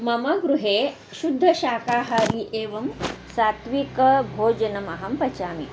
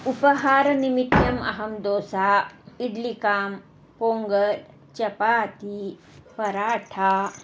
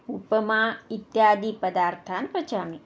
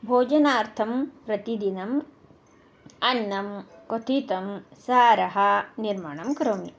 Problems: constant background noise